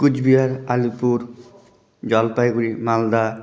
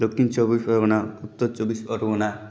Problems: constant background noise